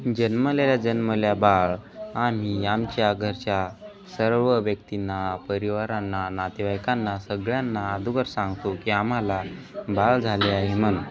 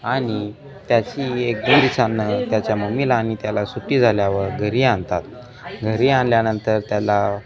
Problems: constant background noise, continuous background conversations